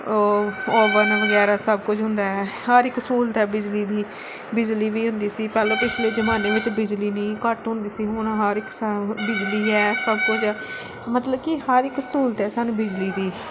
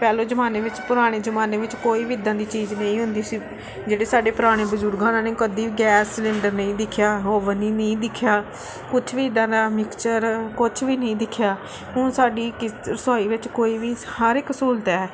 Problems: background sounds at intervals